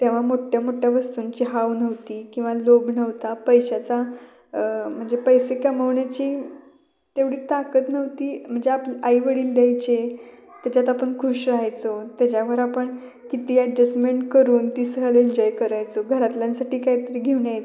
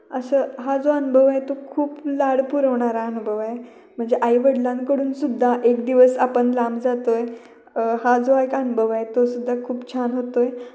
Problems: constant background noise, continuous background conversations